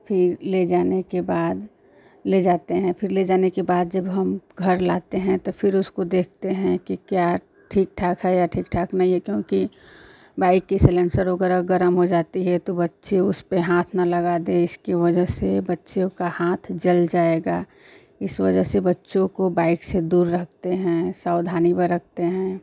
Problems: constant background noise